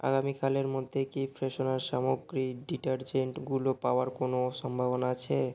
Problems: constant background noise